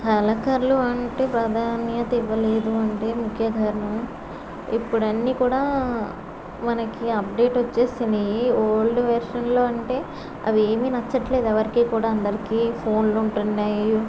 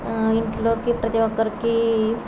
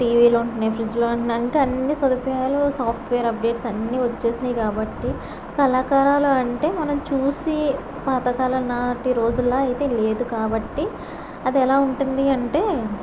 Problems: none marked